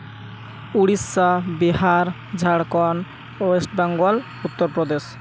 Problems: constant background noise